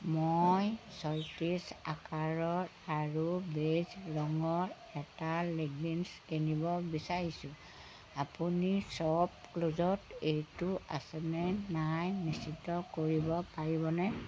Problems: constant background noise